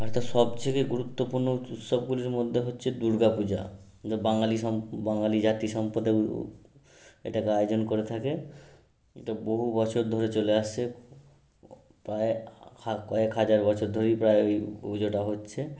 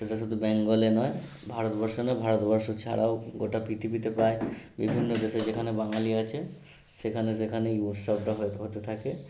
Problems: background sounds at intervals